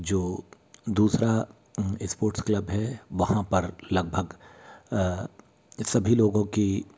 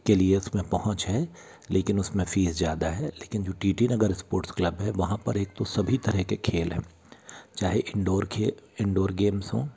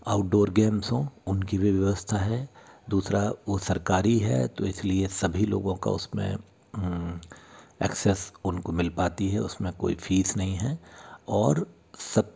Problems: background sounds at intervals